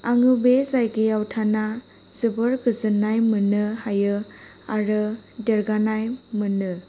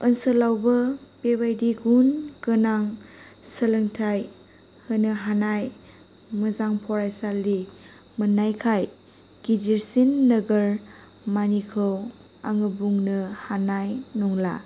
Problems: none marked